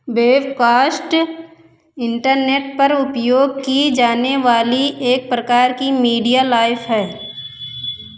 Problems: echo